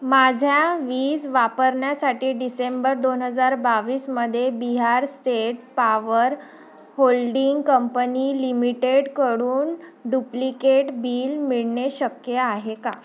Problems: none marked